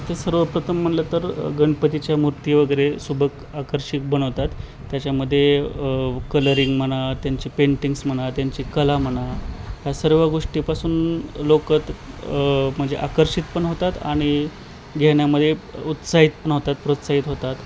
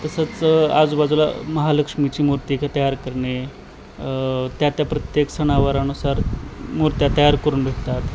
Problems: constant background noise